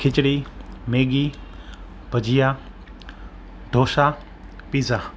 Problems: constant background noise